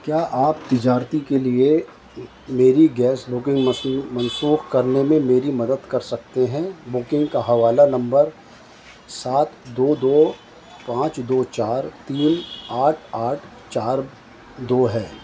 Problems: constant background noise